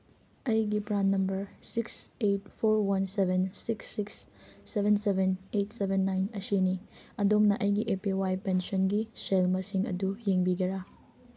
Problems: background sounds at intervals